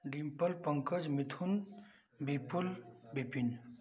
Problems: constant background noise